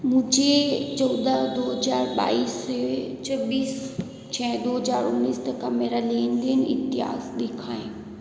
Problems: constant background noise, echo